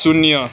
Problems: none marked